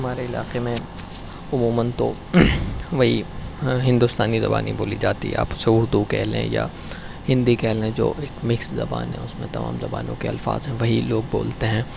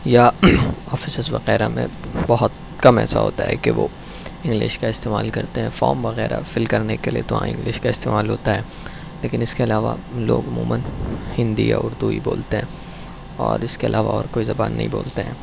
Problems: background sounds at intervals